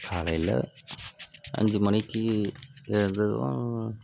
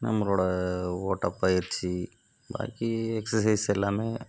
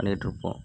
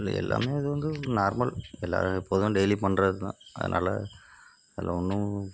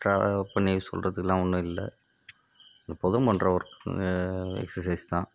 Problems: constant background noise